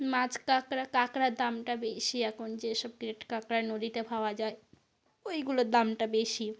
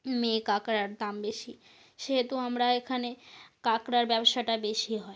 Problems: constant background noise